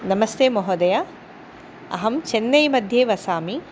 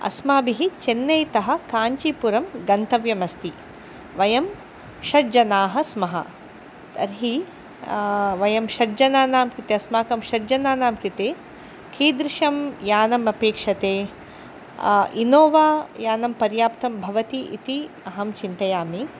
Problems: constant background noise